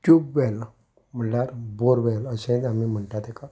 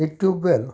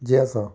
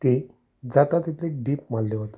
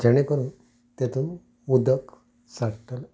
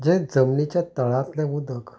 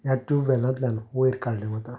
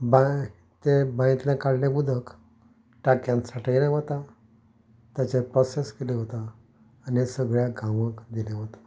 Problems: background sounds at intervals